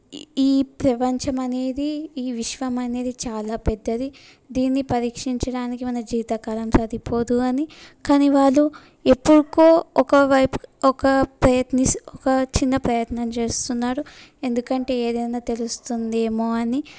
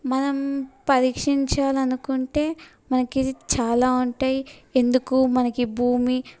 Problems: none marked